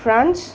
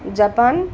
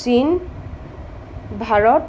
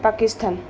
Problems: constant background noise